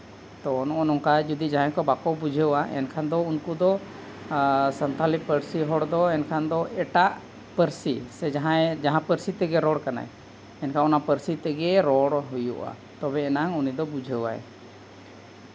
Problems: constant background noise